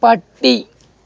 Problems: none marked